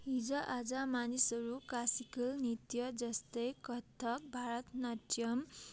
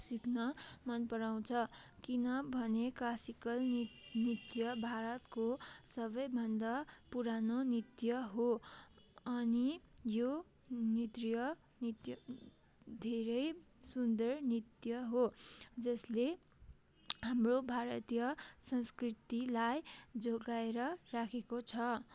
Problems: constant background noise